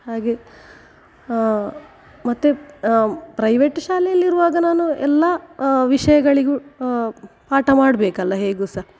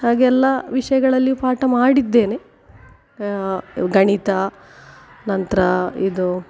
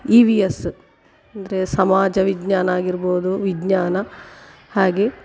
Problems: none marked